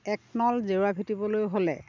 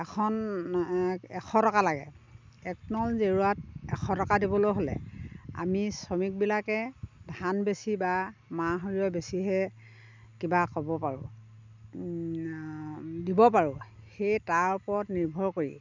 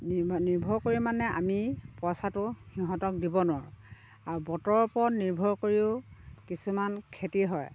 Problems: constant background noise, background conversations at intervals